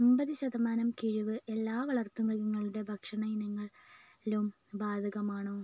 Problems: low volume